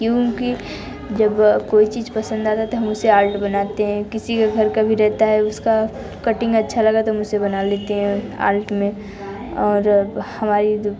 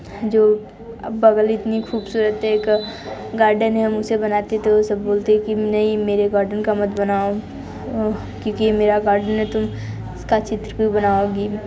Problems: constant background noise, continuous background conversations